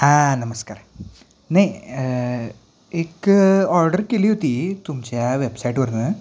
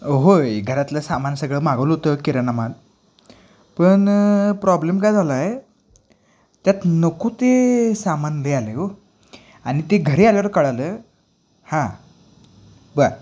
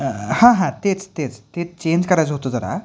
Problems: none marked